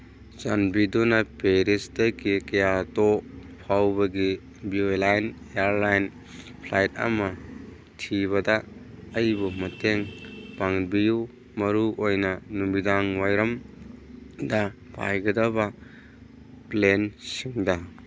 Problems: background sounds at intervals